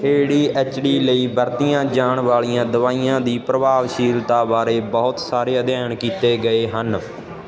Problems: constant background noise